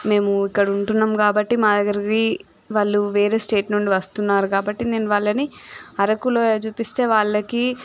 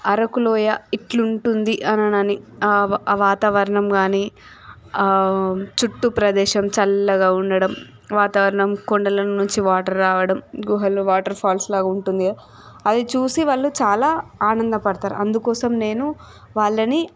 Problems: background sounds at intervals